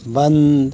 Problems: constant background noise